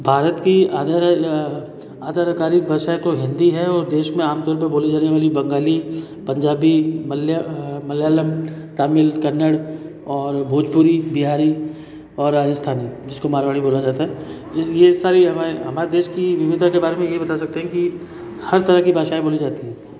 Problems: constant background noise, background conversations at intervals, echo